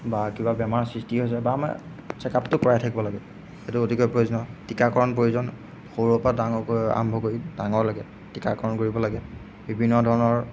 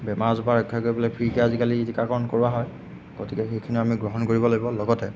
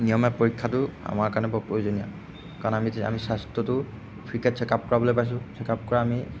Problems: background sounds at intervals